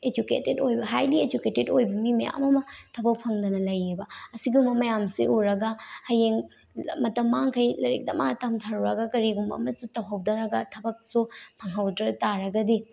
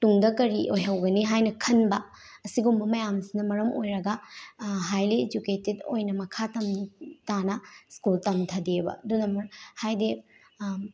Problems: none marked